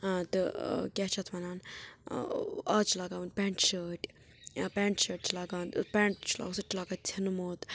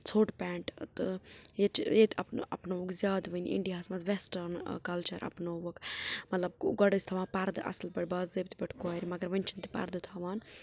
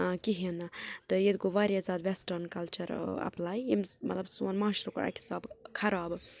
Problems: background sounds at intervals, low volume